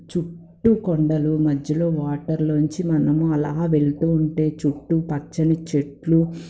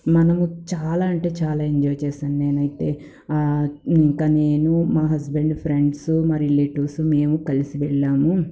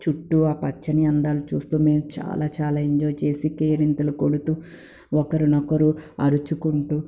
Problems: none marked